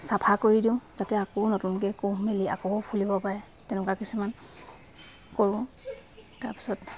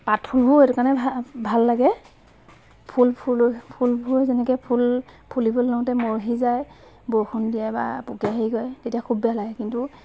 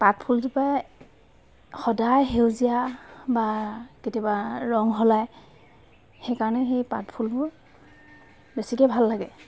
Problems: background sounds at intervals